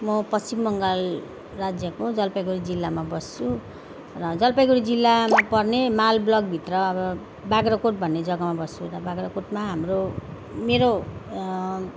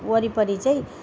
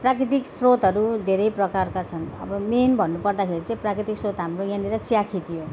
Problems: none marked